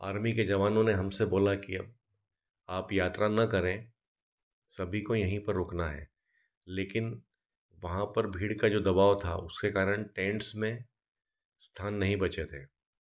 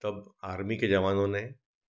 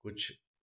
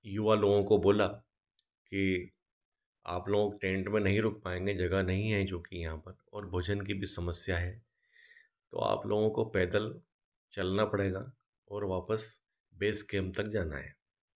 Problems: none marked